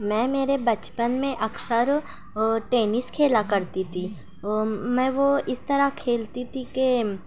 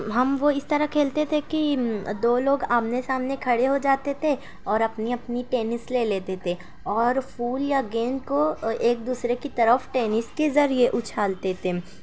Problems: none marked